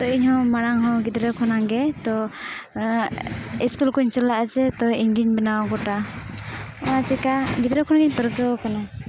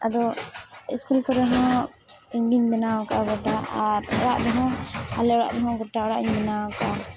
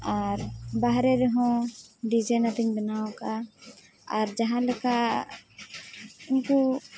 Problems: constant background noise, background conversations at intervals, low volume